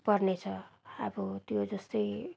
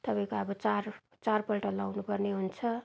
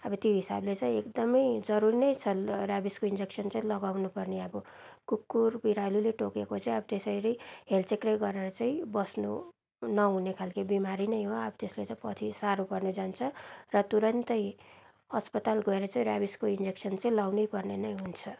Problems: none marked